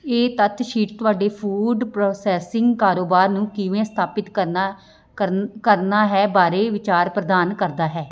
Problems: background sounds at intervals